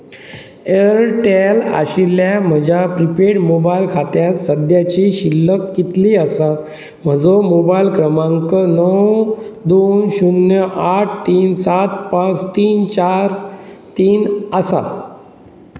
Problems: constant background noise